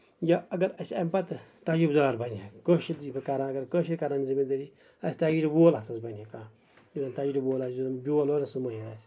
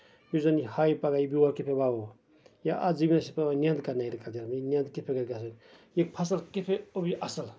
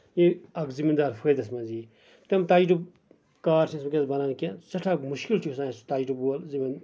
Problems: background sounds at intervals, background conversations at intervals